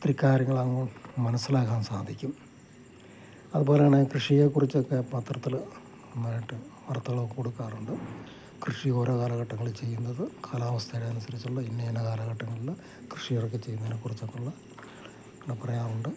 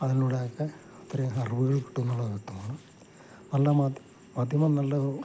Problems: constant background noise, low volume